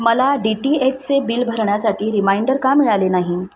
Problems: none marked